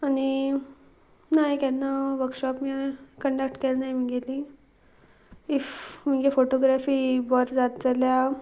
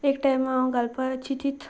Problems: constant background noise